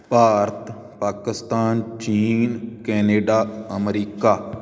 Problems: none marked